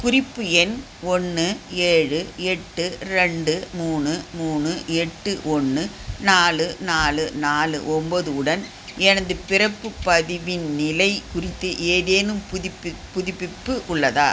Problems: constant background noise